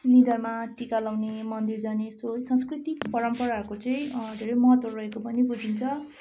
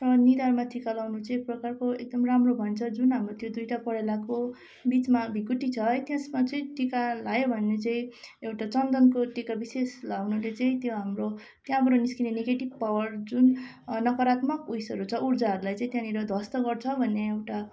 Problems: constant background noise